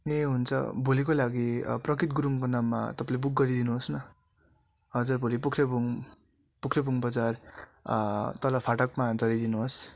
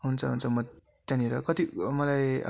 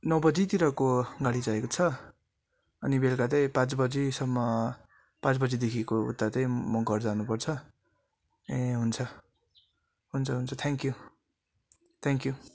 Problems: constant background noise